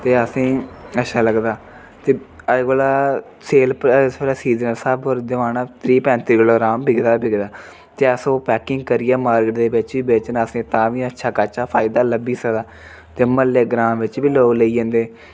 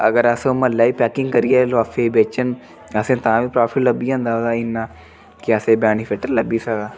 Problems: none marked